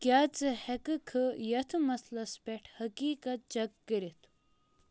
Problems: none marked